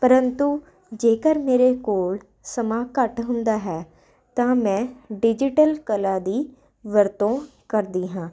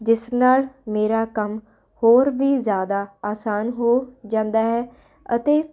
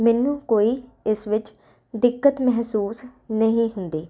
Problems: constant background noise